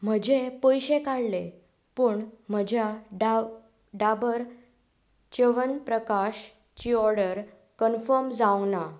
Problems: constant background noise